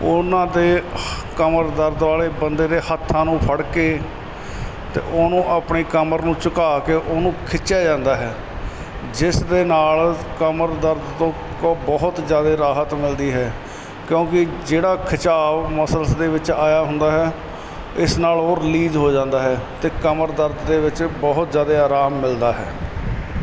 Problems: constant background noise